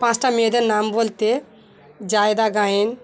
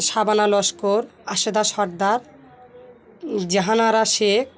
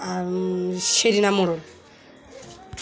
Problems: constant background noise